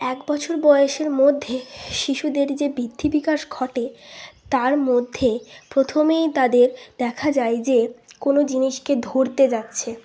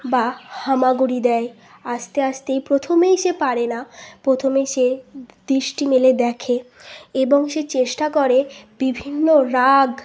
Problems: none marked